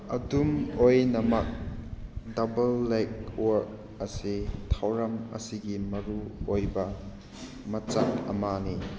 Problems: none marked